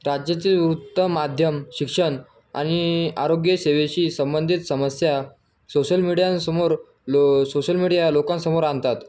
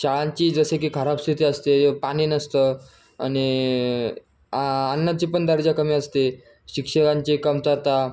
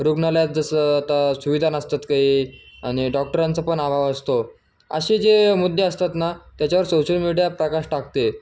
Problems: constant background noise